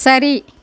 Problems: background sounds at intervals